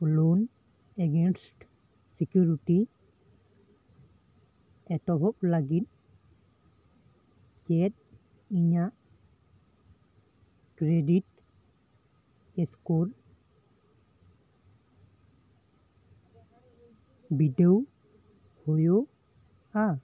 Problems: constant background noise, background conversations at intervals